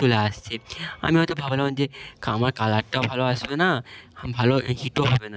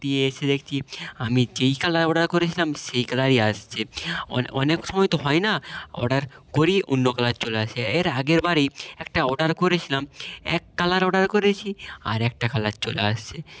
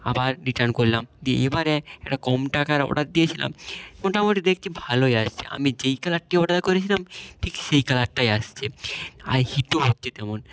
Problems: background sounds at intervals